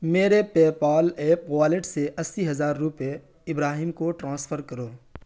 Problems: constant background noise